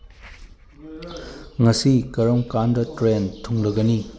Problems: background sounds at intervals